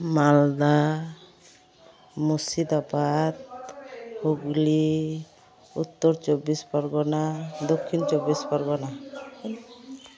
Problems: continuous background conversations